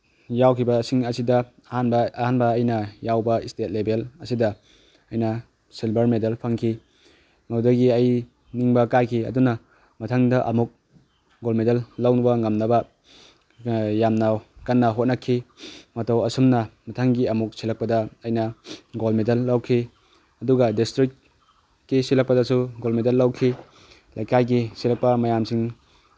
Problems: background sounds at intervals